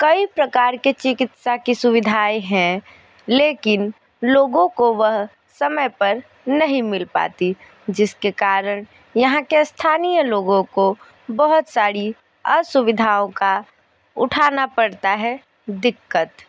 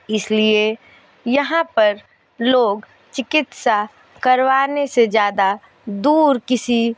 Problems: none marked